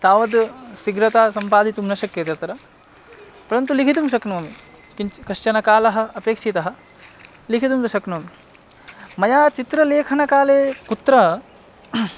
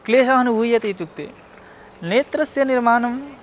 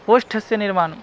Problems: background sounds at intervals